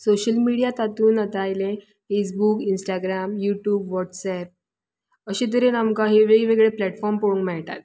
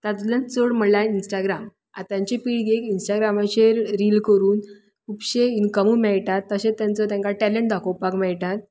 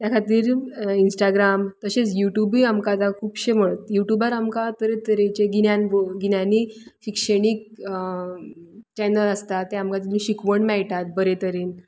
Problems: background sounds at intervals